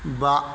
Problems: background sounds at intervals